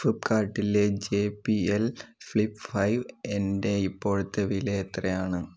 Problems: none marked